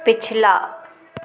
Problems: none marked